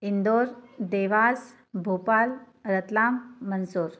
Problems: background sounds at intervals, background conversations at intervals